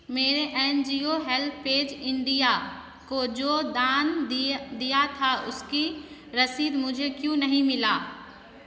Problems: constant background noise, echo